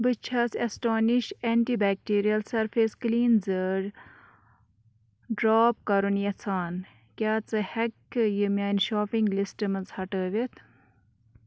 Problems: background sounds at intervals